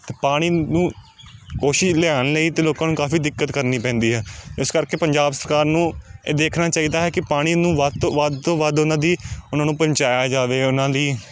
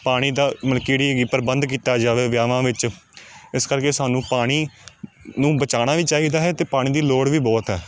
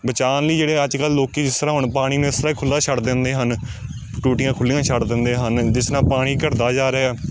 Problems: constant background noise